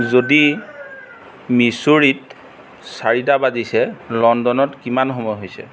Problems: background sounds at intervals